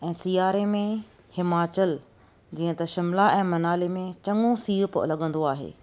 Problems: none marked